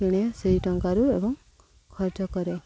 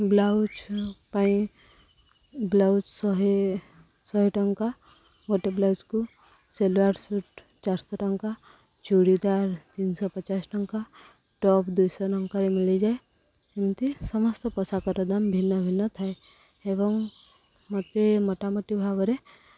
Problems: none marked